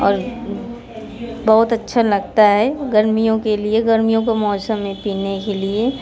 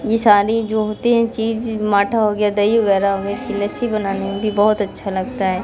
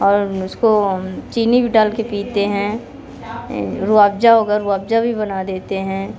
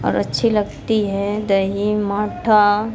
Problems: background sounds at intervals, background conversations at intervals